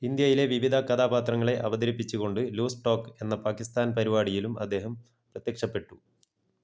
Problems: low volume